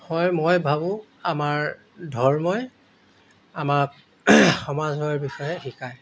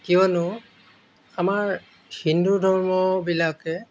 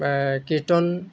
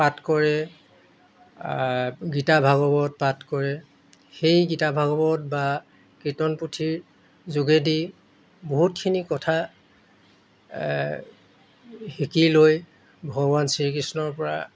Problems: none marked